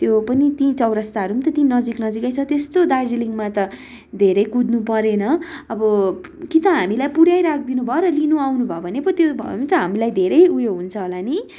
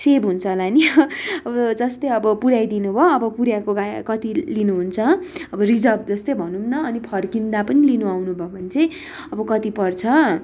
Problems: none marked